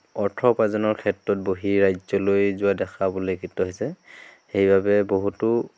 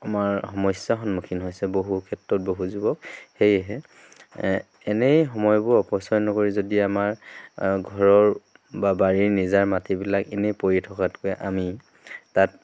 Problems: none marked